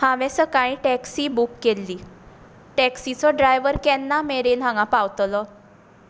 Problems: none marked